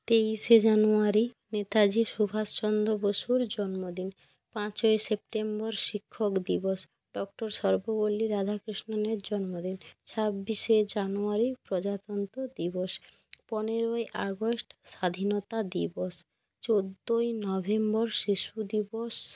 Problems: none marked